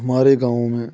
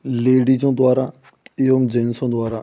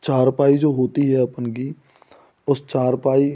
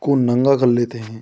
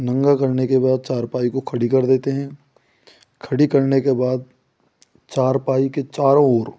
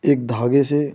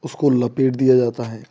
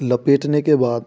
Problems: none marked